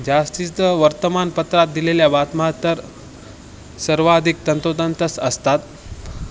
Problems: constant background noise, background conversations at intervals